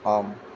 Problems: none marked